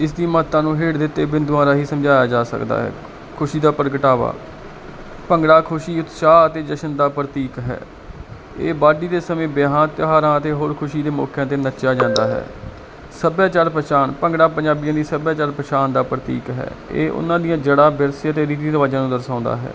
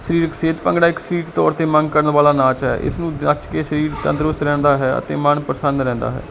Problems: constant background noise, background conversations at intervals